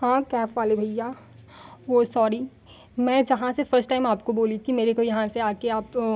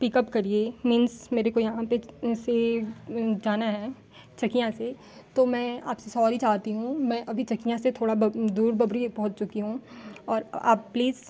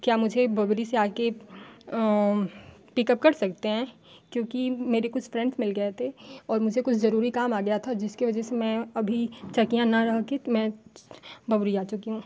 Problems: constant background noise